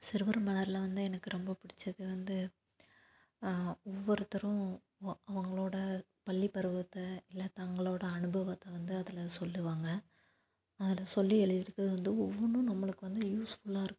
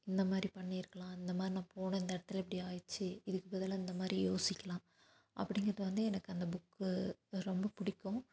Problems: none marked